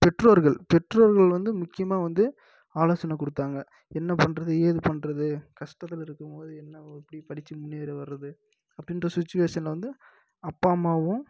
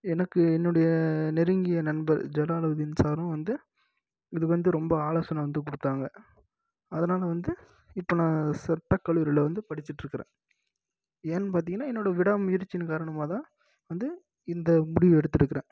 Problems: low volume